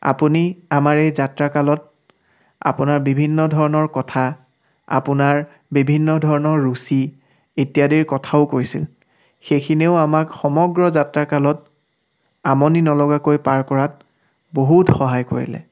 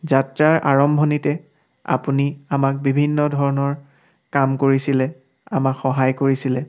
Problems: background sounds at intervals